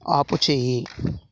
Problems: none marked